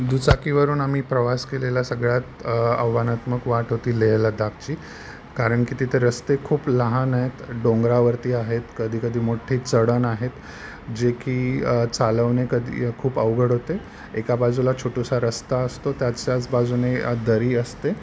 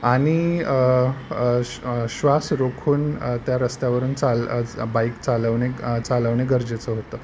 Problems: none marked